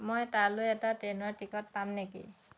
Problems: constant background noise